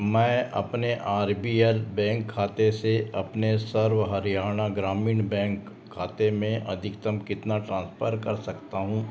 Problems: constant background noise, background conversations at intervals